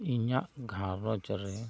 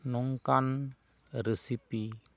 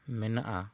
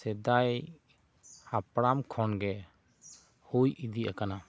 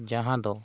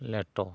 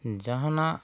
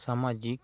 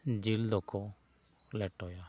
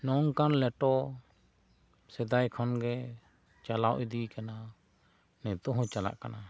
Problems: none marked